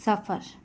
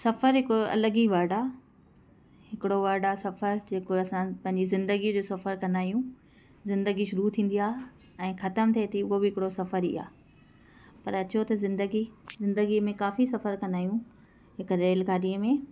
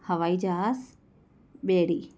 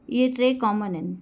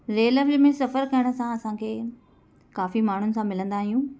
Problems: none marked